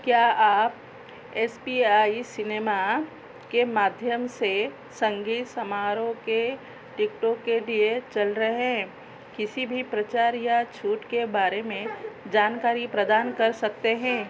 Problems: constant background noise